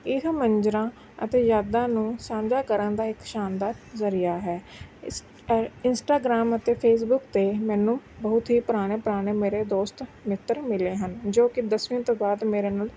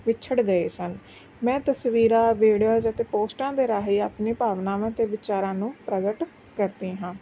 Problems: background sounds at intervals